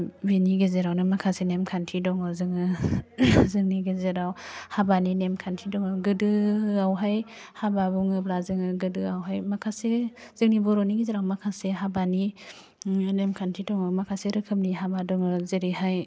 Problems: constant background noise